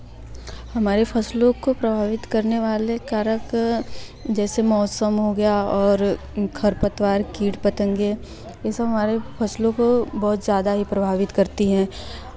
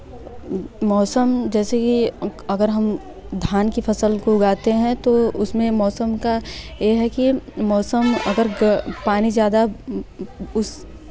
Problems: constant background noise